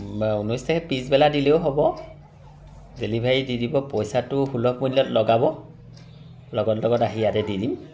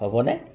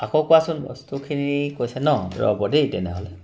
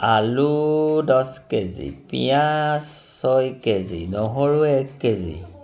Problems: none marked